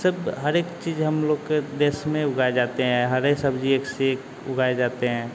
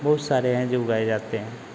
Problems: none marked